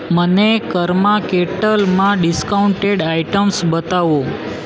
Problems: constant background noise